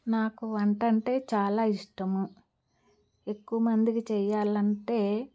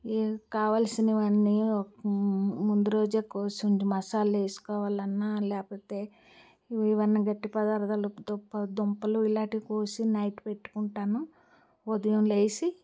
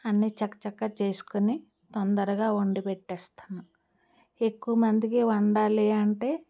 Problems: background sounds at intervals